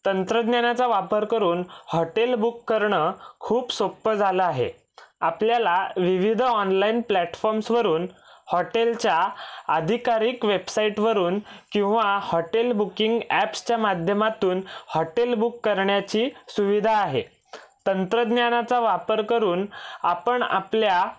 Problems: none marked